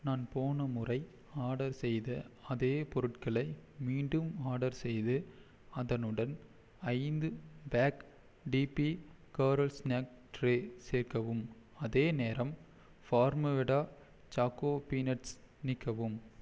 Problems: none marked